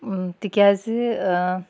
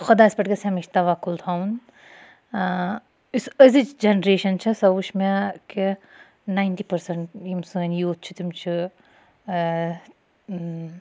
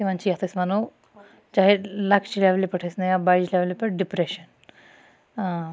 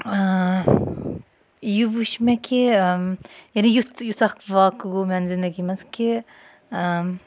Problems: none marked